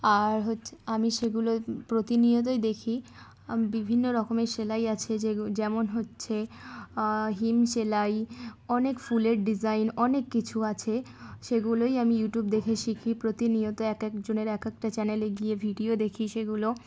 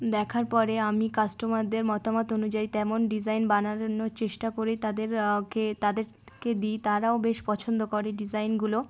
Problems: background sounds at intervals, background conversations at intervals